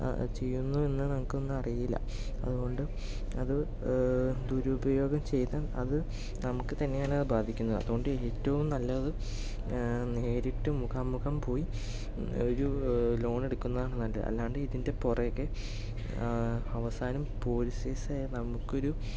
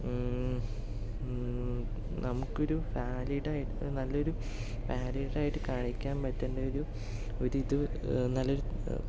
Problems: none marked